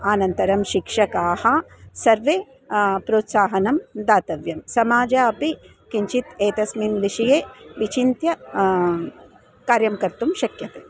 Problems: constant background noise